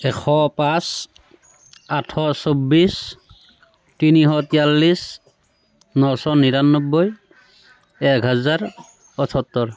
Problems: constant background noise